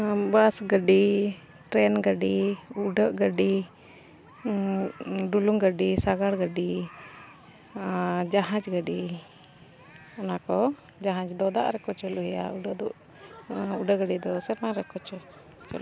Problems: constant background noise